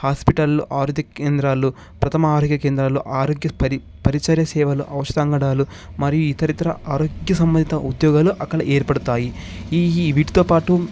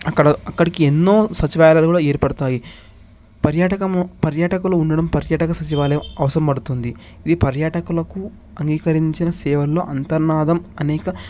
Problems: background sounds at intervals